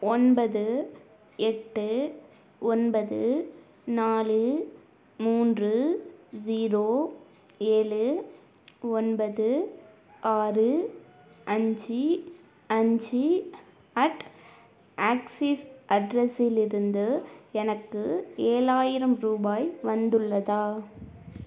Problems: none marked